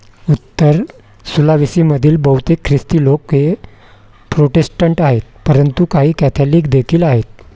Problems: constant background noise